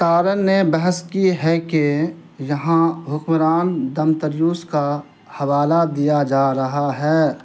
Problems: constant background noise